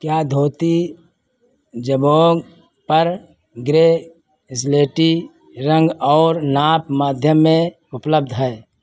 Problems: constant background noise